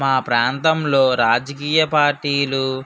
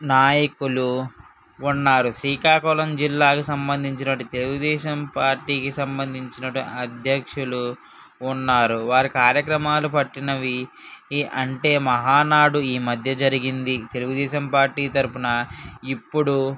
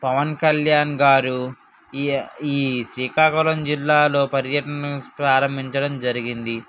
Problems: none marked